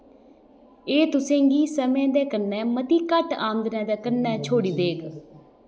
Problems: background sounds at intervals